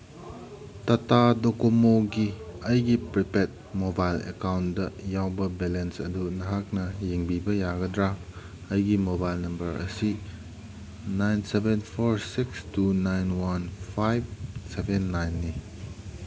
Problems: background sounds at intervals